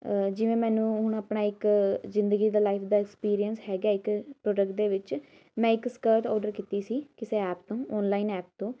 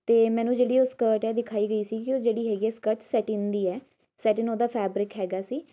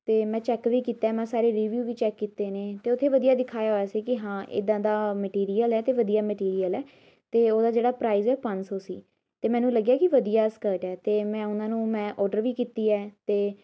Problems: none marked